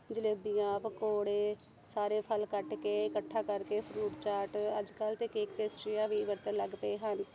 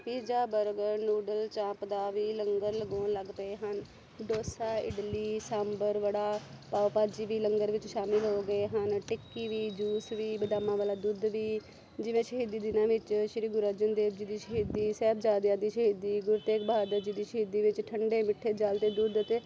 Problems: constant background noise